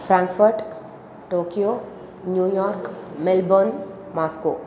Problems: continuous background conversations